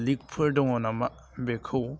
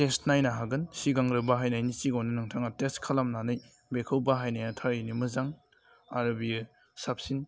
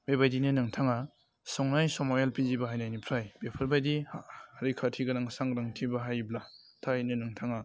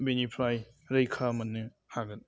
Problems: low volume